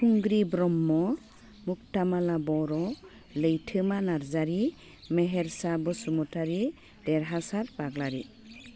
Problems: constant background noise